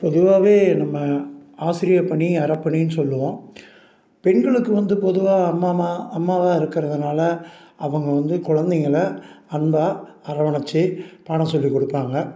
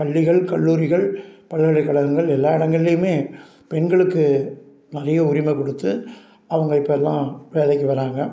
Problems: none marked